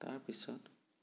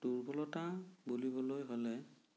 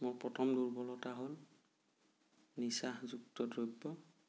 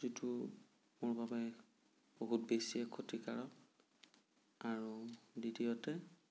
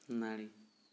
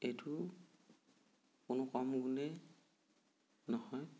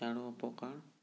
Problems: low volume